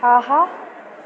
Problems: background sounds at intervals